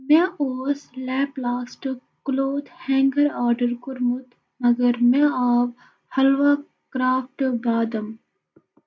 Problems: background sounds at intervals, echo